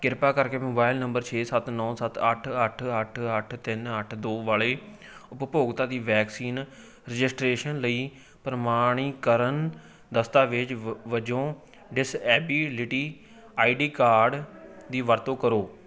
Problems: continuous background conversations